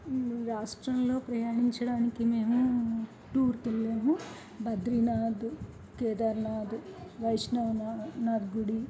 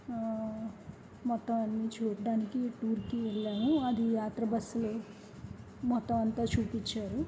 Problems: background conversations at intervals, low volume